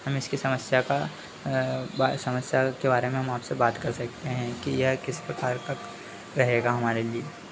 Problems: none marked